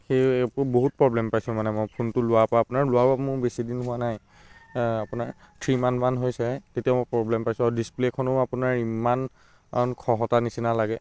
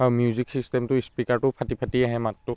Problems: background sounds at intervals